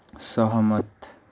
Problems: background sounds at intervals